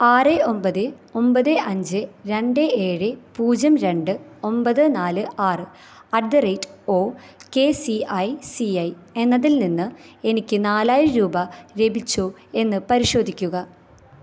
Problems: none marked